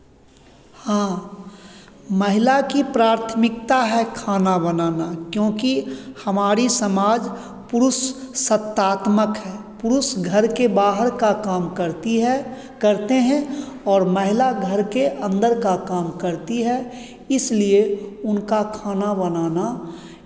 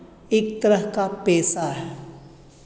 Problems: constant background noise, background conversations at intervals